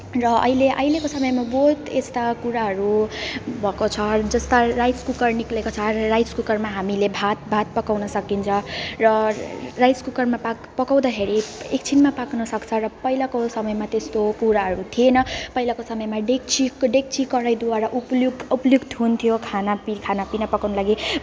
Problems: none marked